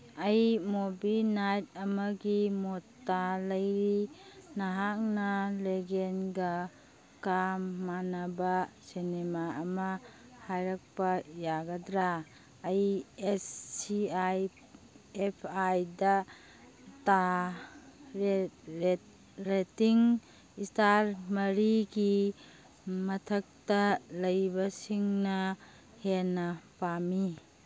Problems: background sounds at intervals, background conversations at intervals